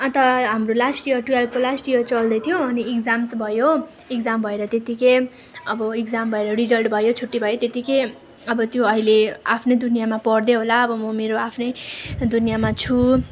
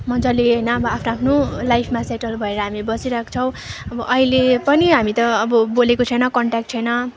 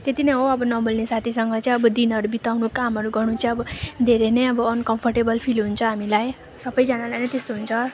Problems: background sounds at intervals